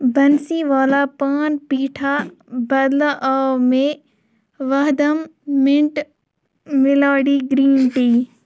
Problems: none marked